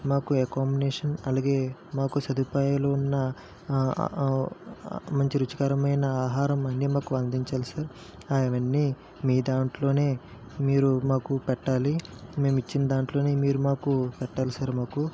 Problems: constant background noise, low volume